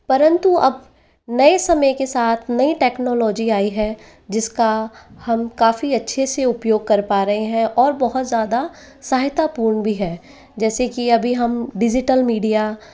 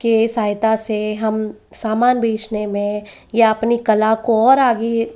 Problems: none marked